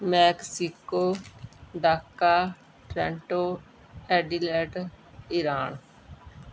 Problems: background sounds at intervals